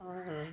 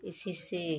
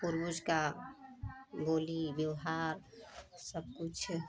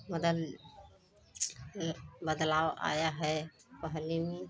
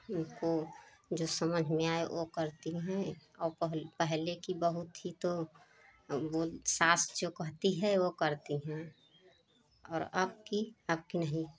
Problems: none marked